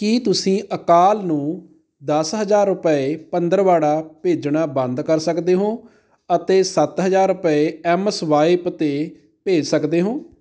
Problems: background sounds at intervals